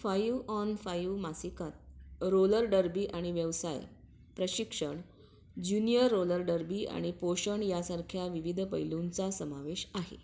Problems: background sounds at intervals